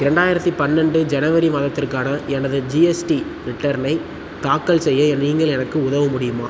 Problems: constant background noise